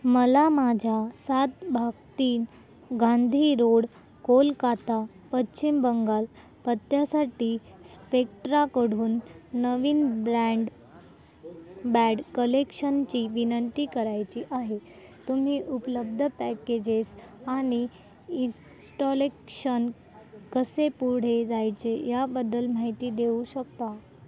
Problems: none marked